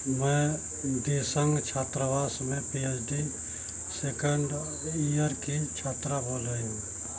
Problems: none marked